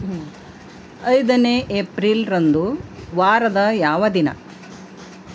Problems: constant background noise